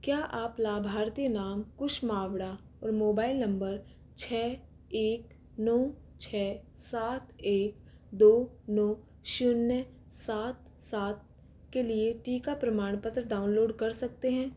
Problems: constant background noise